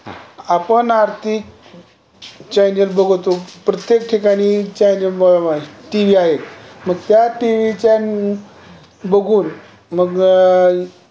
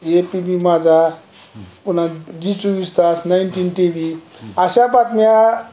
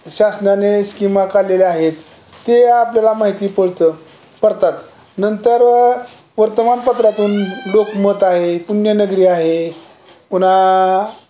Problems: none marked